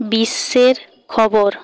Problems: background sounds at intervals